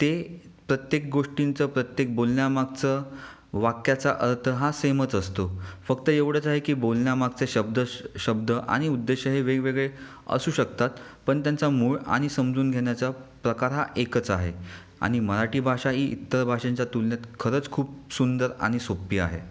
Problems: none marked